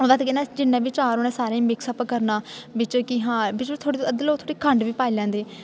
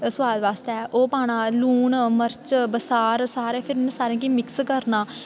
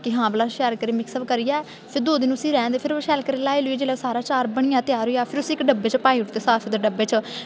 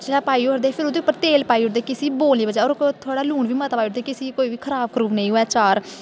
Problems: constant background noise